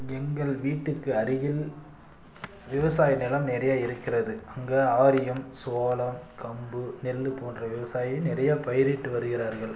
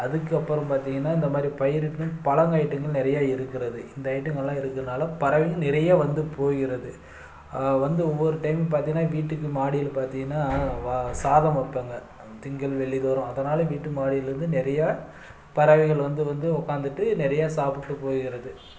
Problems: none marked